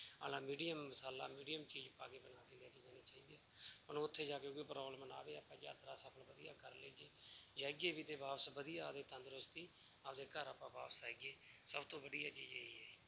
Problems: none marked